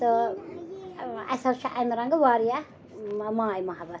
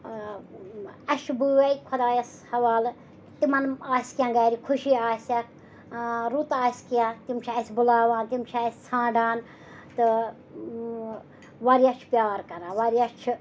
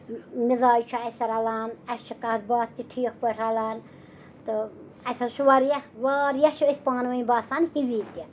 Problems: background sounds at intervals, background conversations at intervals